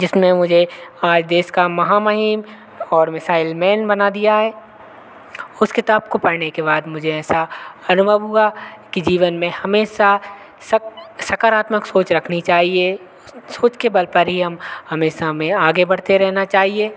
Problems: none marked